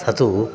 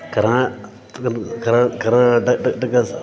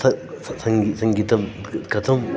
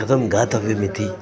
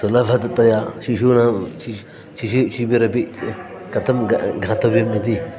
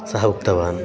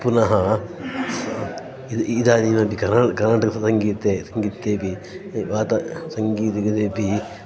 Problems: background sounds at intervals